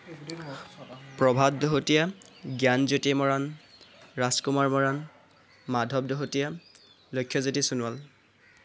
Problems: constant background noise, background conversations at intervals